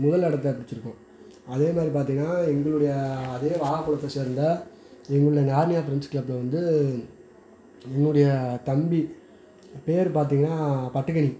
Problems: background conversations at intervals